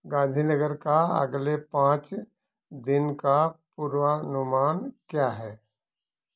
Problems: none marked